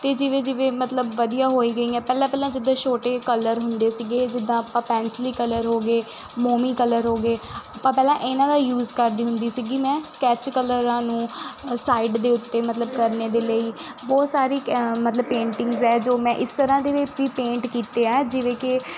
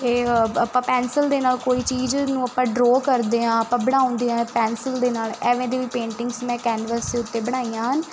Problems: constant background noise